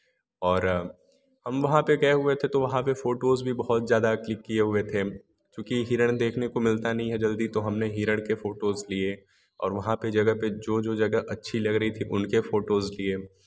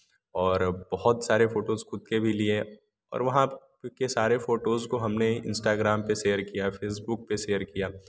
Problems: background sounds at intervals